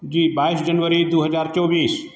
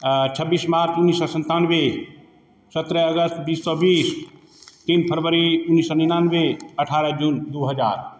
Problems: background sounds at intervals